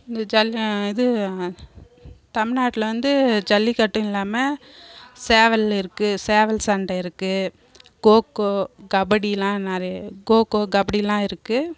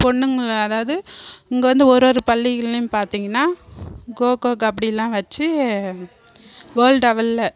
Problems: none marked